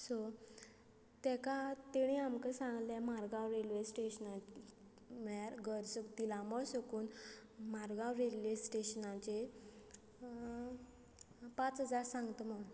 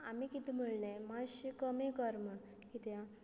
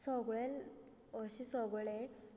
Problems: constant background noise